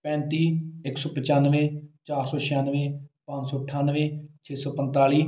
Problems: none marked